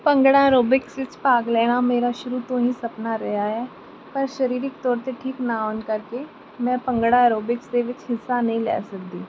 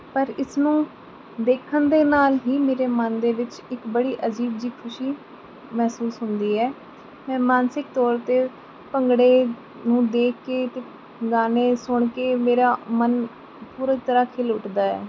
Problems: background sounds at intervals